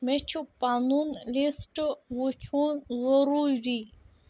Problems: background sounds at intervals